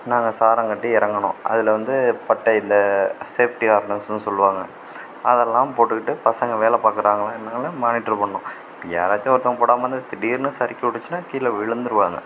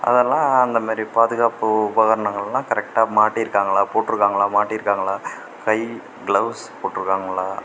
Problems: none marked